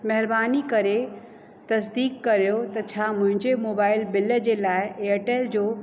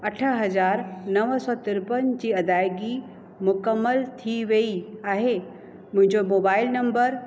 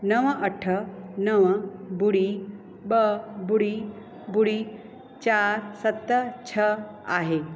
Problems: constant background noise, echo